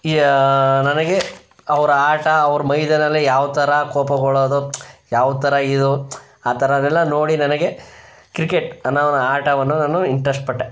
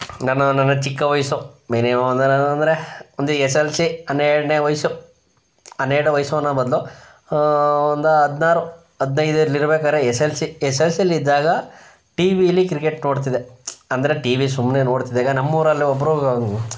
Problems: none marked